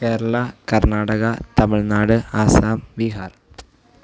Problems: low volume